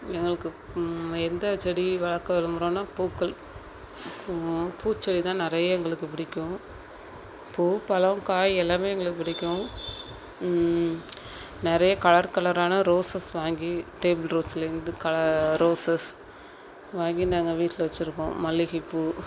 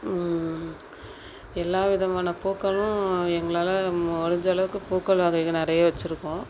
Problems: constant background noise